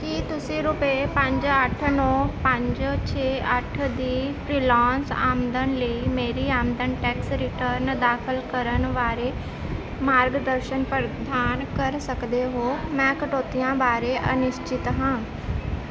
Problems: constant background noise